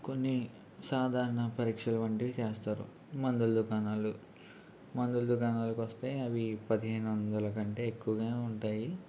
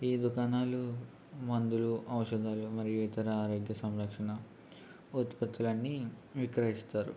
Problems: constant background noise, low volume